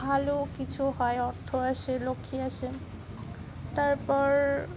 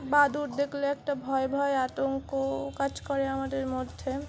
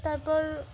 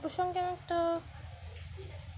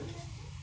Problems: constant background noise, continuous background conversations